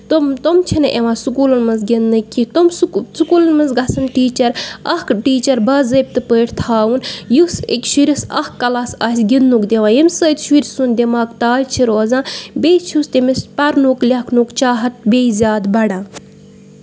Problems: background sounds at intervals